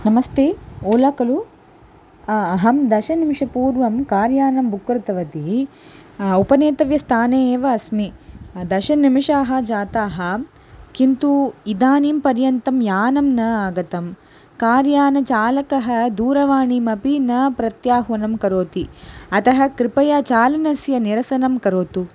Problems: constant background noise